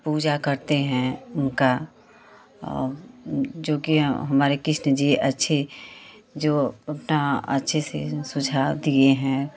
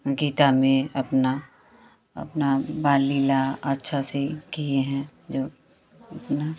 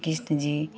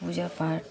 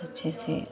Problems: none marked